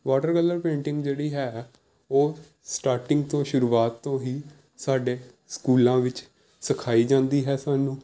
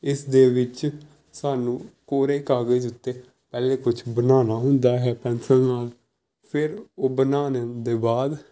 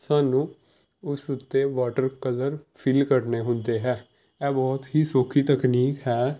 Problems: none marked